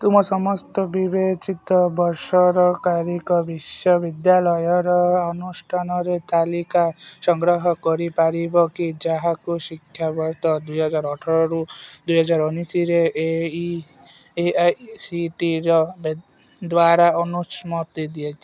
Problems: none marked